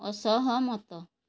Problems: none marked